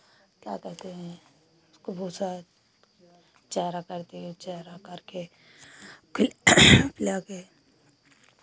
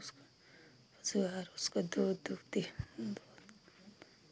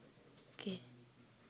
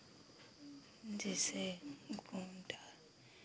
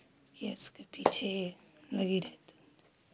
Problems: constant background noise